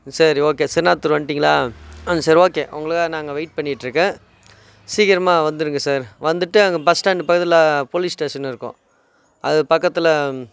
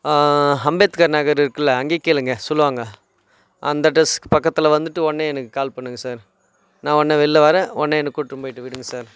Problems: background sounds at intervals